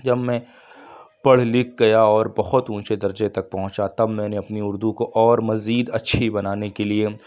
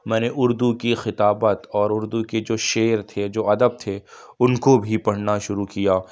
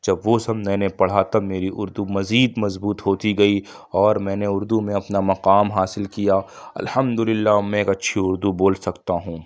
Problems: none marked